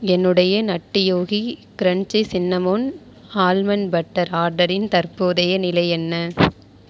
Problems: none marked